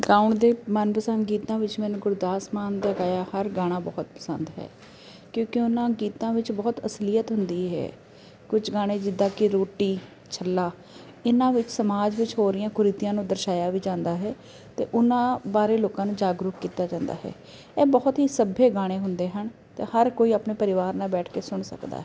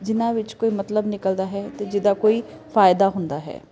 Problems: constant background noise